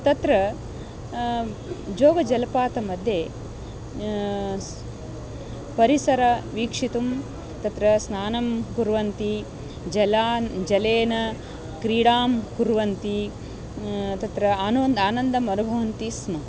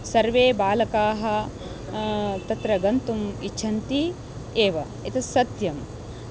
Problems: constant background noise, continuous background conversations